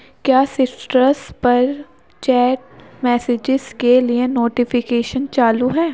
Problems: background sounds at intervals